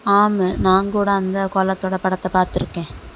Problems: constant background noise